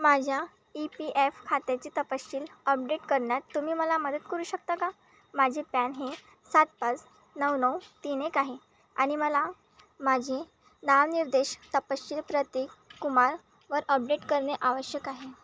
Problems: none marked